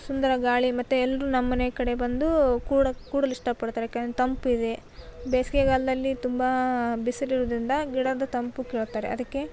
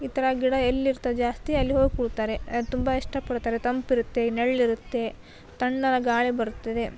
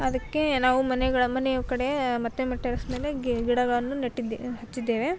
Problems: background sounds at intervals